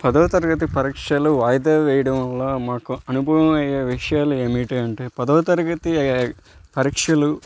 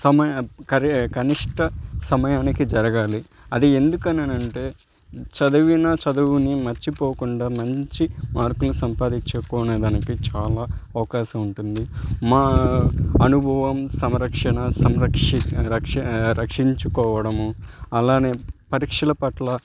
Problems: background sounds at intervals